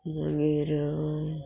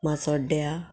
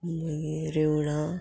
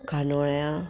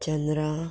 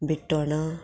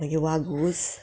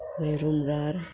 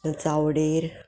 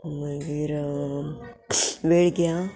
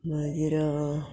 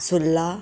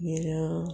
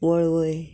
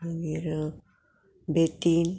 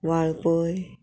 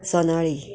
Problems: background sounds at intervals, background conversations at intervals